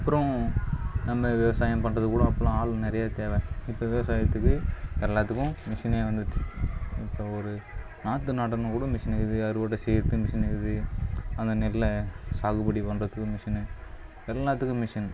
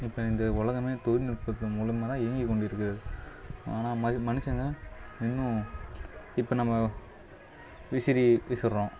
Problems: low volume